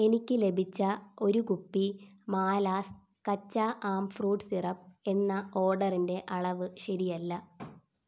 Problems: none marked